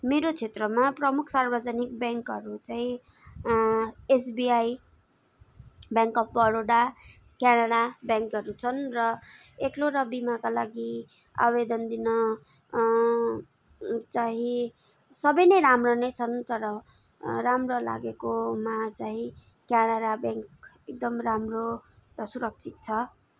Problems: none marked